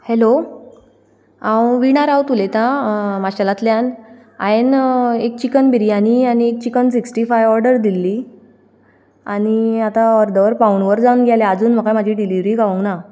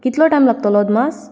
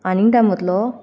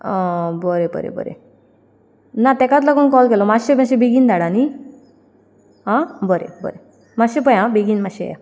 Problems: none marked